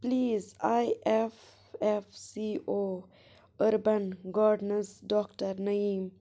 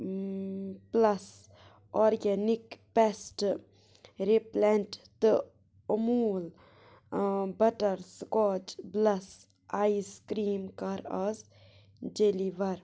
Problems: none marked